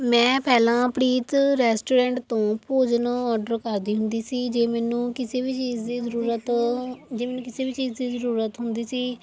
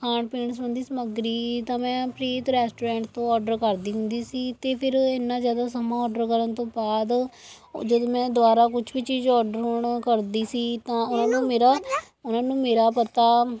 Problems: background conversations at intervals